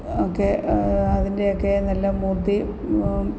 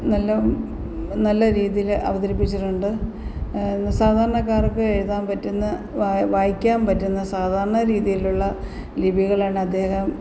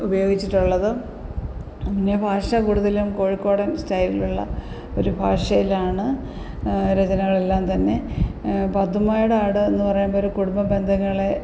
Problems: background sounds at intervals